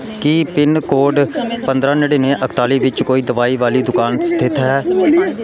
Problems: continuous background conversations